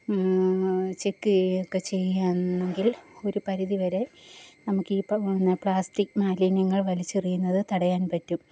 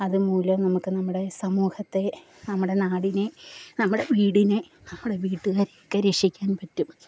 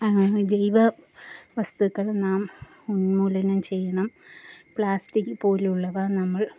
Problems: low volume